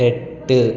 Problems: background sounds at intervals